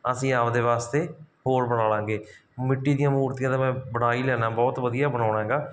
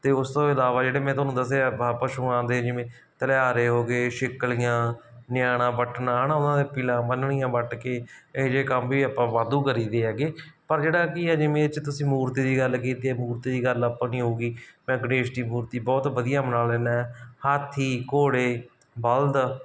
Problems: background sounds at intervals